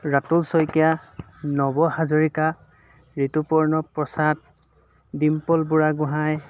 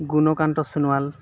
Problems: constant background noise